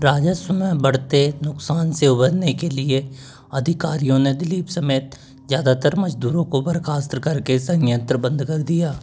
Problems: constant background noise